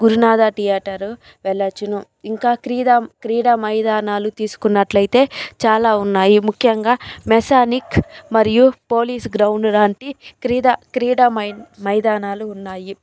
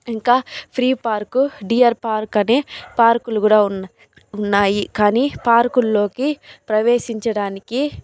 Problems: none marked